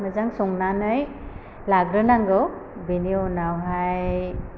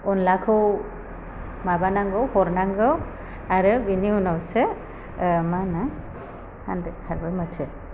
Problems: constant background noise